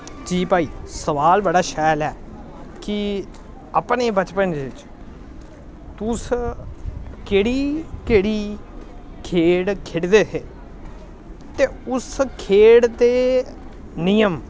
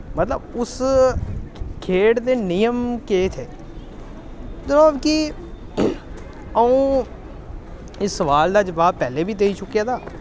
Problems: constant background noise